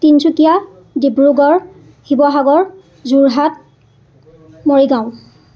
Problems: continuous background conversations